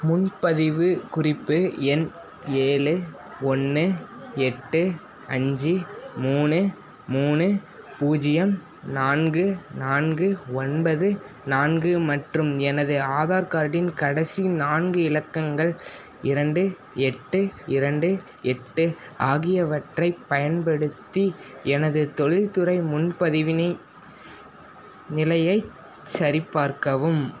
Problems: constant background noise